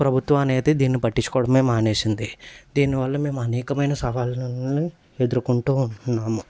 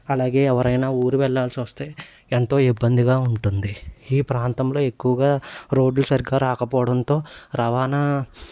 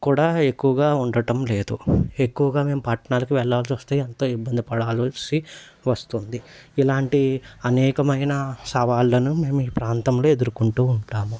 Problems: constant background noise